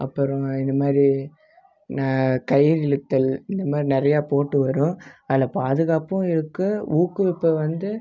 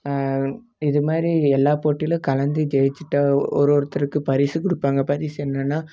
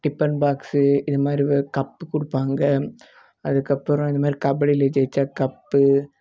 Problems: none marked